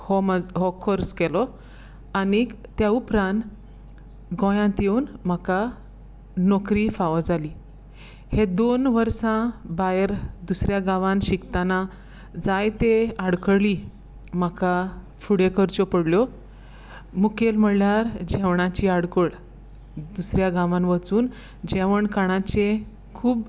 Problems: background sounds at intervals